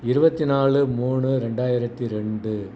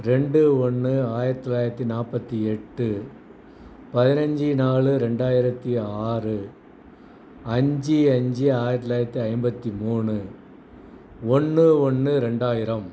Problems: background sounds at intervals